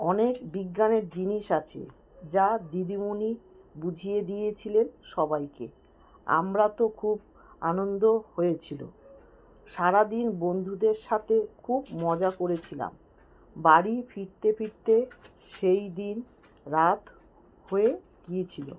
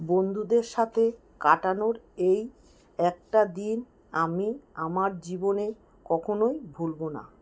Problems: background sounds at intervals